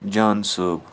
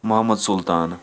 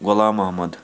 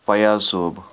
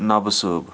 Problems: constant background noise